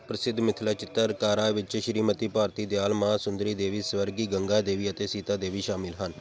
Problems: none marked